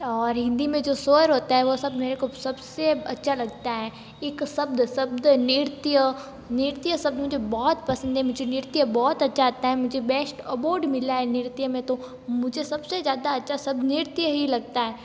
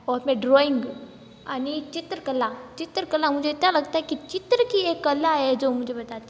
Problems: background sounds at intervals